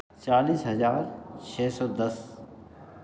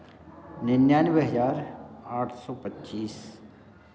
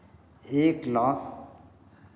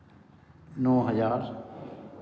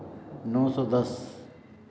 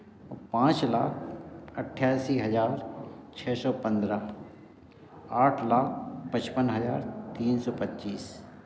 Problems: none marked